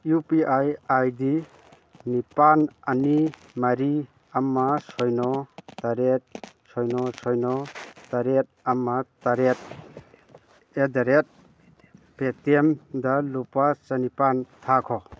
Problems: background conversations at intervals